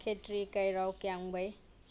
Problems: none marked